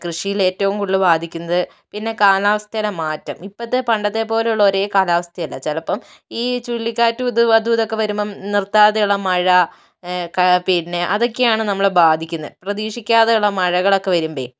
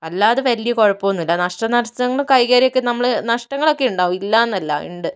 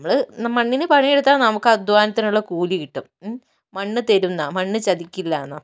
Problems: none marked